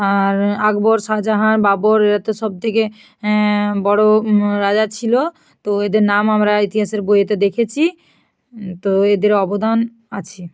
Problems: none marked